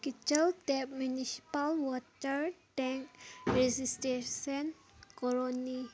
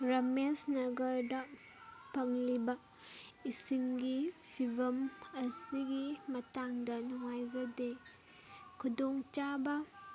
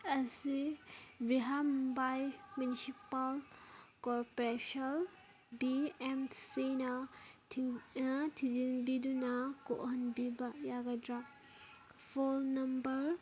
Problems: background sounds at intervals, background conversations at intervals